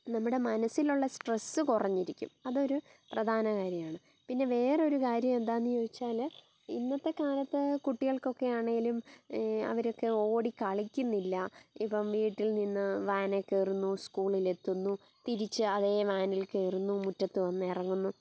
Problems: background sounds at intervals, low volume